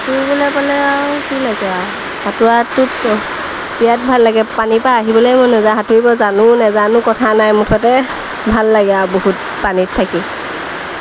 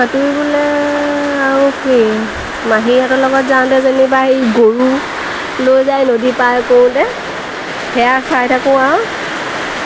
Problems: constant background noise